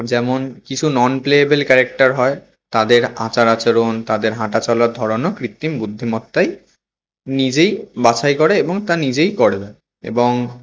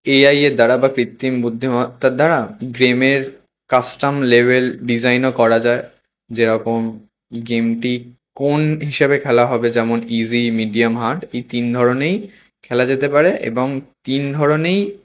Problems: constant background noise